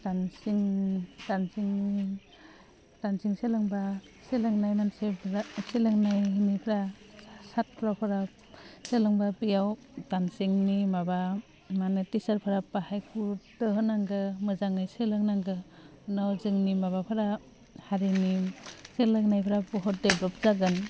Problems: constant background noise